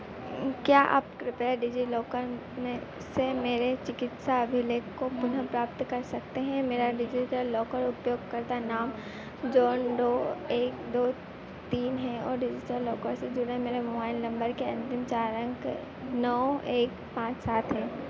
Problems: constant background noise